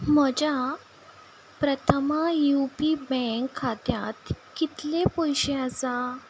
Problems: background sounds at intervals